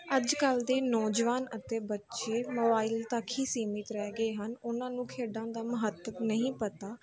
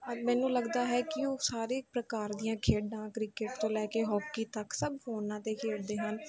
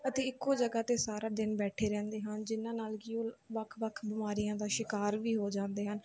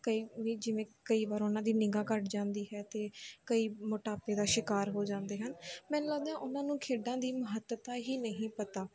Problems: continuous background conversations